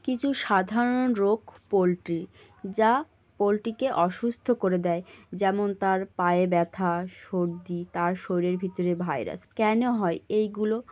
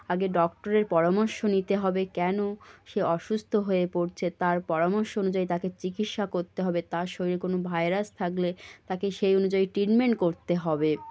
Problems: none marked